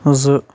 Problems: none marked